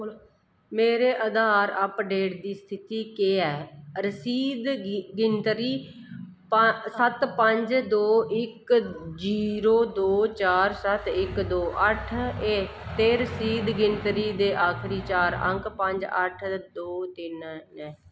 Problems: constant background noise